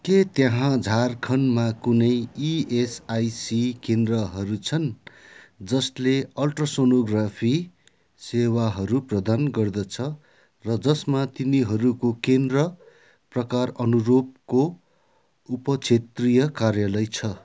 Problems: none marked